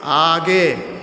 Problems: constant background noise